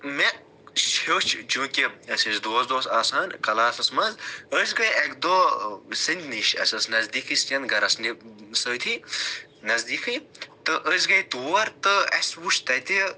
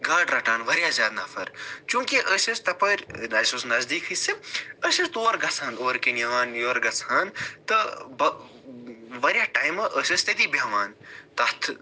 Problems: none marked